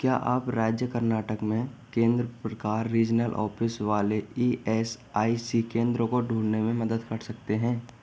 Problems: constant background noise, background conversations at intervals